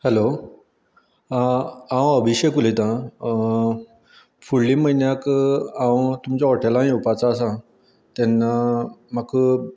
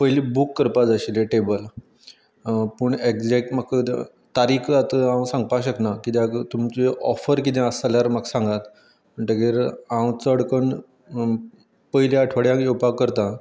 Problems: background sounds at intervals